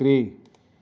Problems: background sounds at intervals